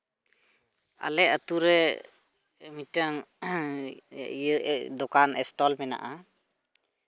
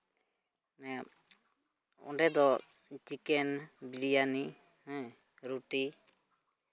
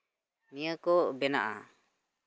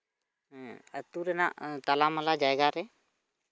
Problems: background sounds at intervals